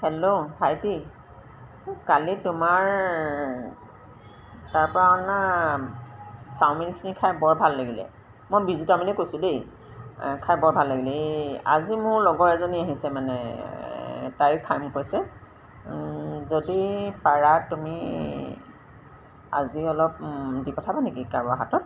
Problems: none marked